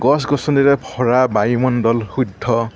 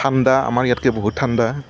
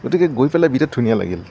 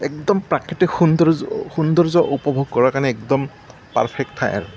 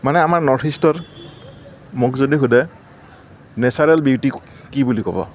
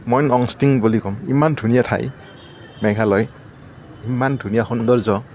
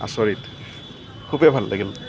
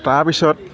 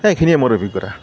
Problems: background sounds at intervals, background conversations at intervals